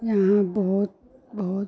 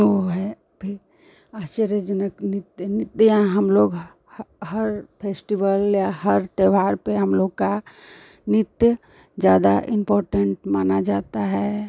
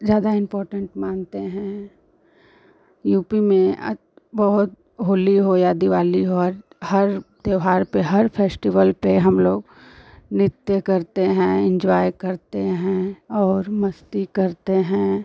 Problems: none marked